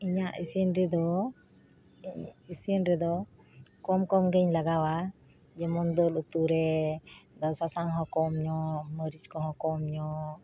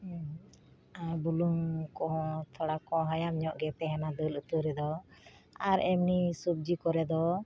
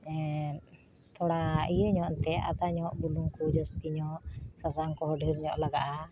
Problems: none marked